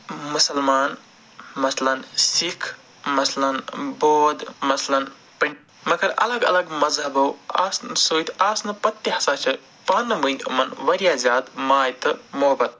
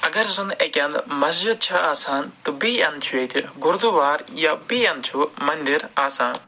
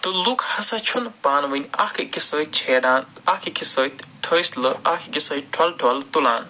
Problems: none marked